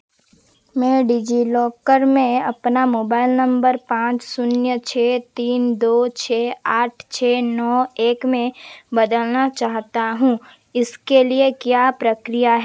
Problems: none marked